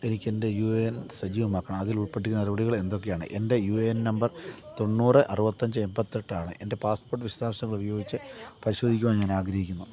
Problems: low volume